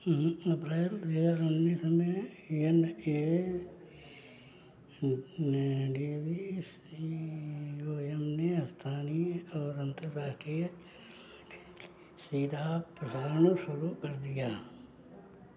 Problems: background sounds at intervals